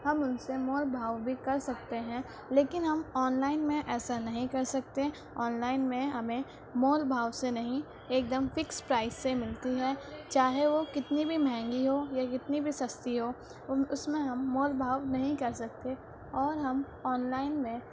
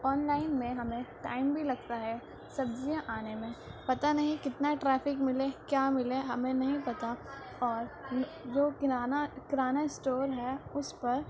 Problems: constant background noise, background conversations at intervals